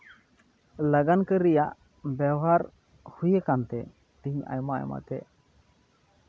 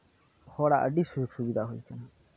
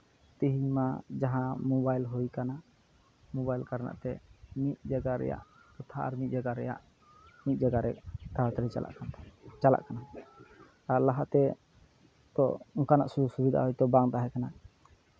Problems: background sounds at intervals